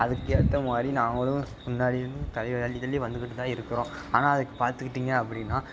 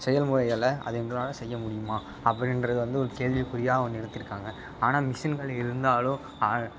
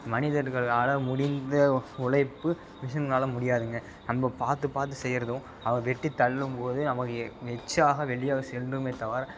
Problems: constant background noise